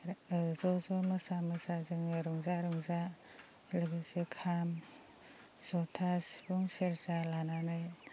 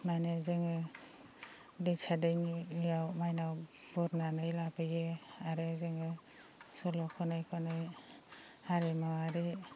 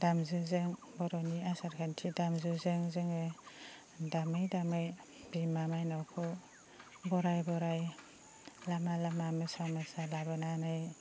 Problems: low volume